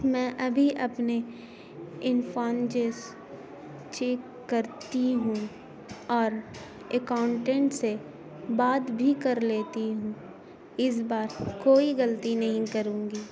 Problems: constant background noise